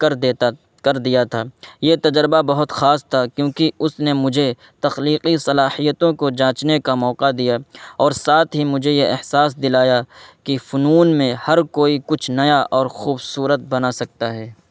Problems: constant background noise